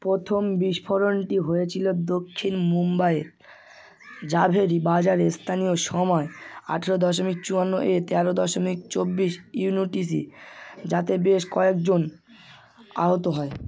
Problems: constant background noise